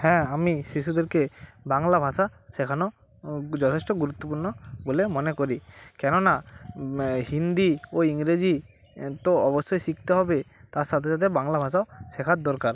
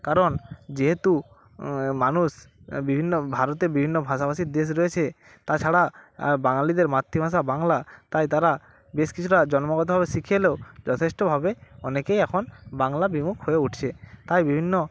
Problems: background sounds at intervals